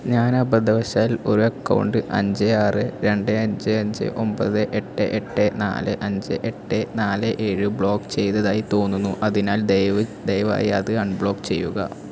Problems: constant background noise